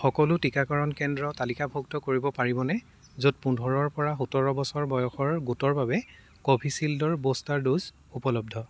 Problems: constant background noise